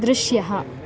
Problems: none marked